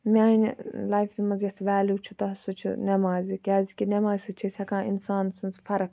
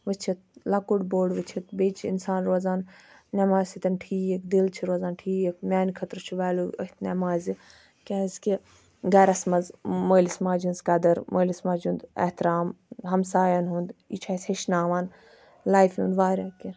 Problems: background sounds at intervals